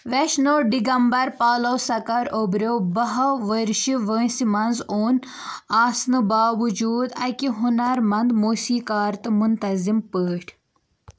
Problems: background sounds at intervals